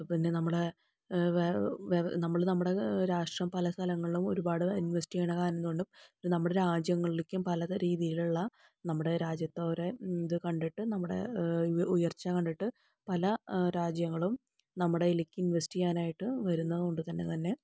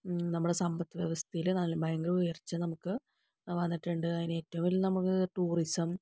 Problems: low volume